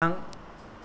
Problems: none marked